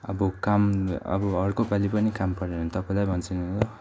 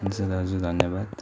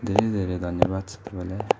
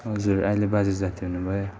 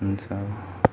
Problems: constant background noise, continuous background conversations